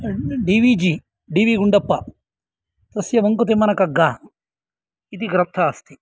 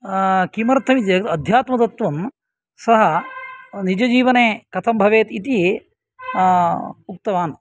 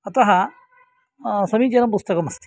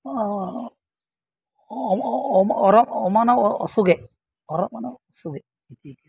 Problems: background sounds at intervals